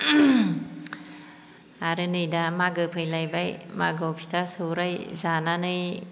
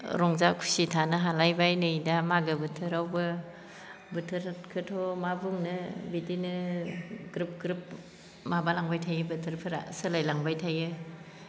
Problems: low volume